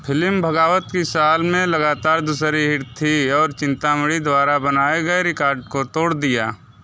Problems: constant background noise